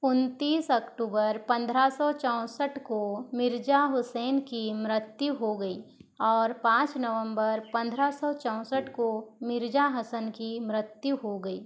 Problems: background sounds at intervals